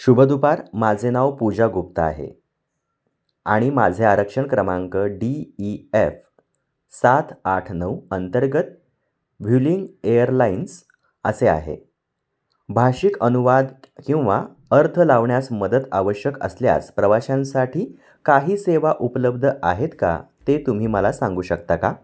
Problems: none marked